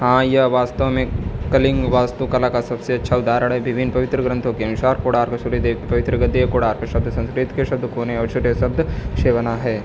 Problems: constant background noise